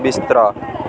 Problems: constant background noise